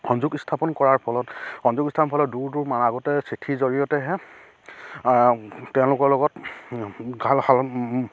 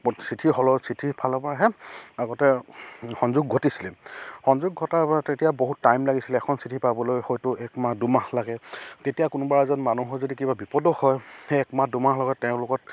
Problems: none marked